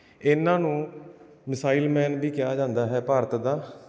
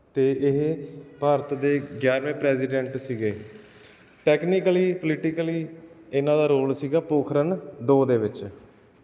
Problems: none marked